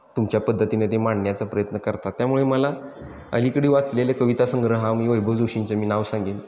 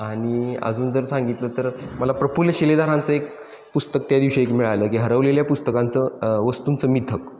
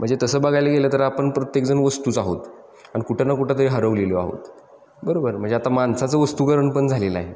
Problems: constant background noise